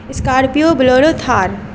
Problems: constant background noise